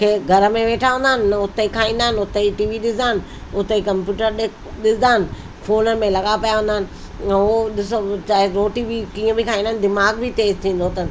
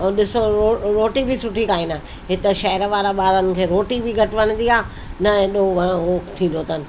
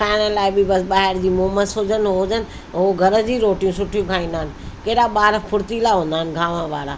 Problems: constant background noise